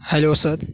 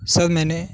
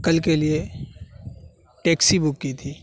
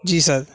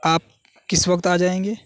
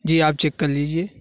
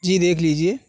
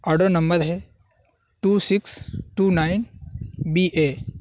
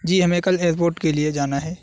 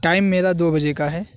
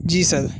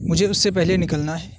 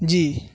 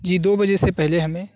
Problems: constant background noise